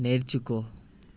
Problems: constant background noise